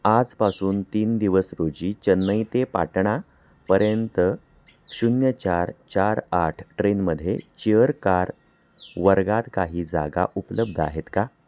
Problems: background sounds at intervals